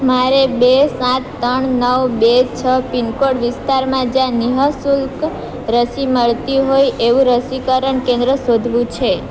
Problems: constant background noise